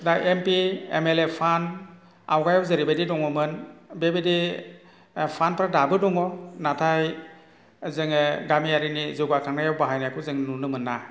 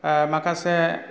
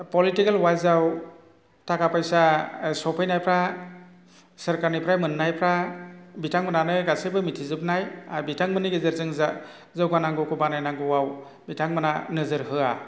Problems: none marked